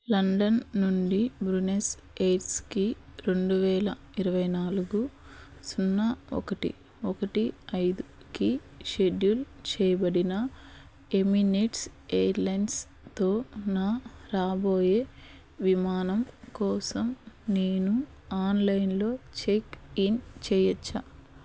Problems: constant background noise